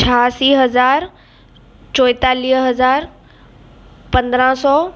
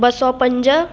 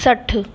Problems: constant background noise